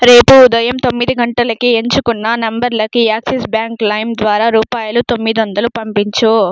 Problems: none marked